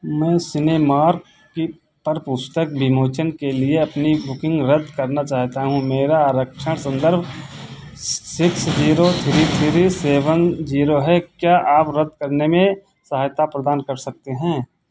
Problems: constant background noise